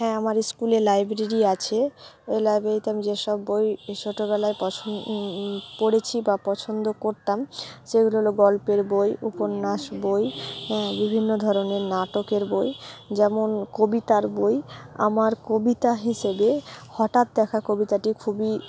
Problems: none marked